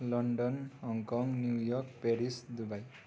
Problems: none marked